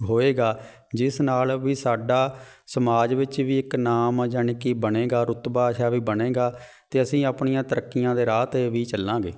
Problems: none marked